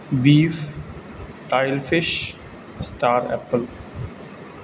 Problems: constant background noise